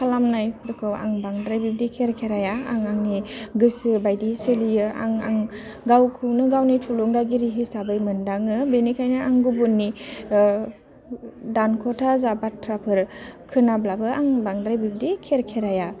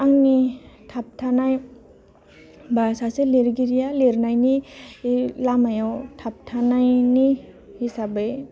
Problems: low volume